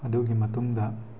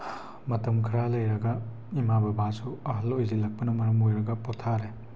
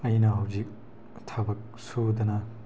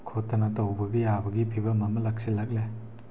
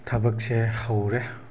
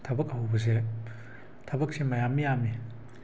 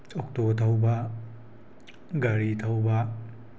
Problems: constant background noise